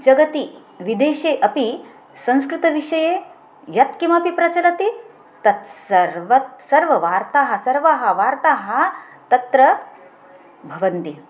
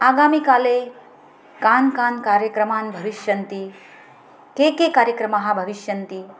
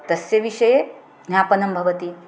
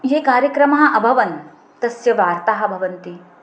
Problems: constant background noise